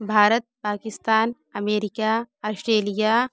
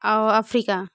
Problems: background sounds at intervals, background conversations at intervals